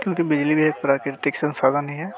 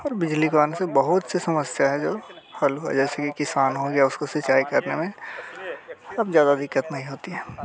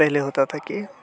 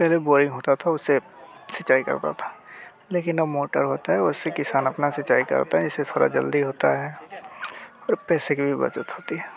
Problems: constant background noise